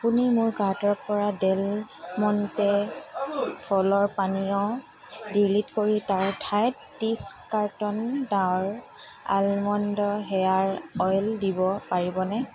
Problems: constant background noise, background conversations at intervals